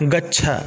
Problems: constant background noise